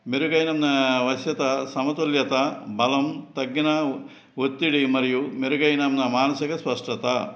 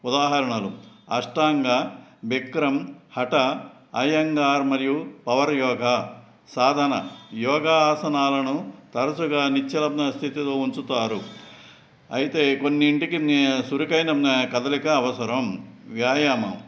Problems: background sounds at intervals